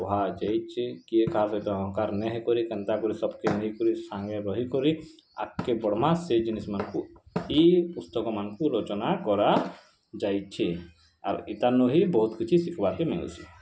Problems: constant background noise